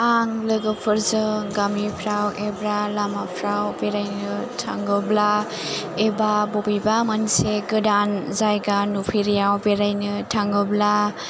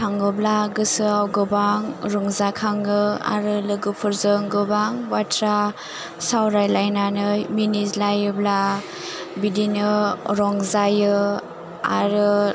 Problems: none marked